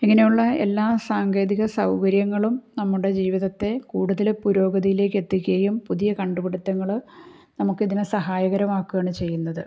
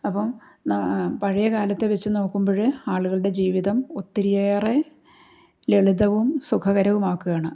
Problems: none marked